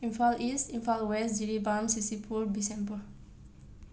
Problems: none marked